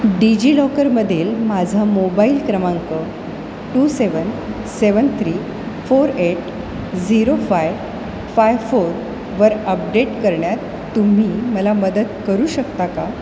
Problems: constant background noise